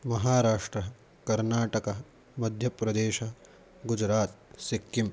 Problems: constant background noise